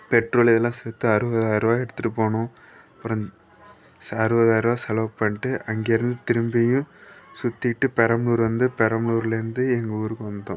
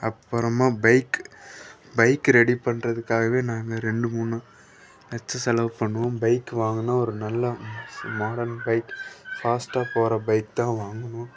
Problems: none marked